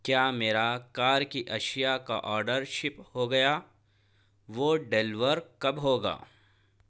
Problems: none marked